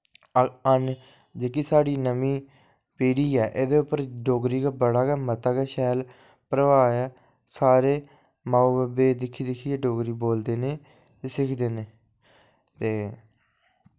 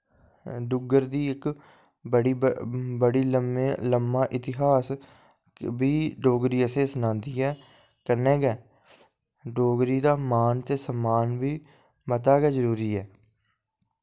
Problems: none marked